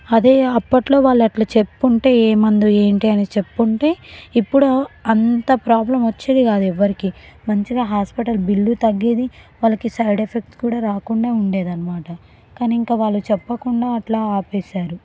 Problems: background sounds at intervals